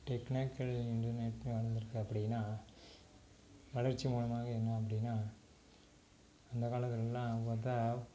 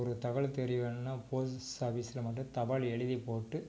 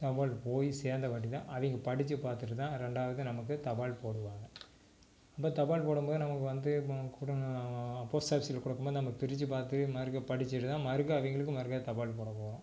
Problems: low volume